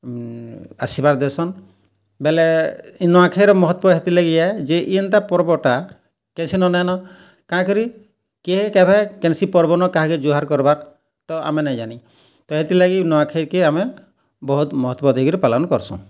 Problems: none marked